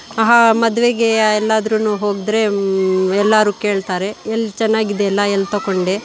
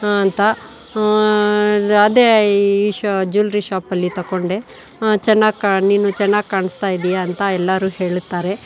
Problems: none marked